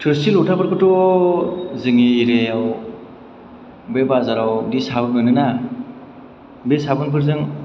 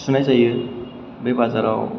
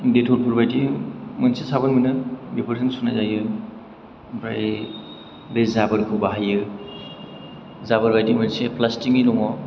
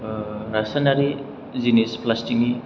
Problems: none marked